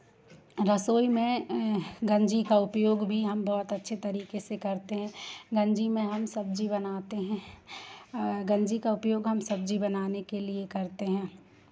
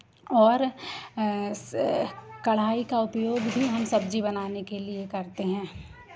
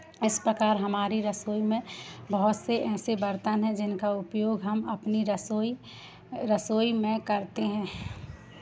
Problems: constant background noise